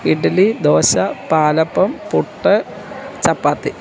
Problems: constant background noise